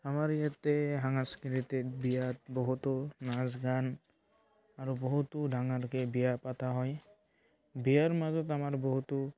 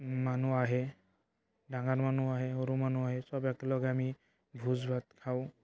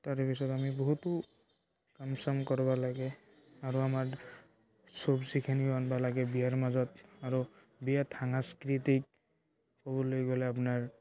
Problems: none marked